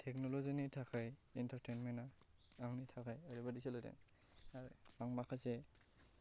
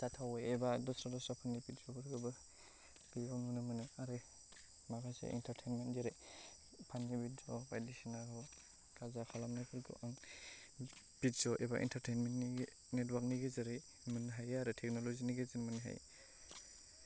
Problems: low volume